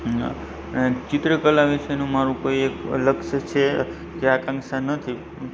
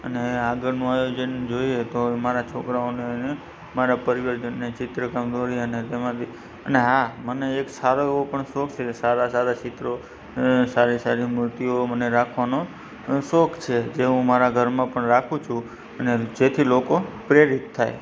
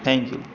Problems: constant background noise, low volume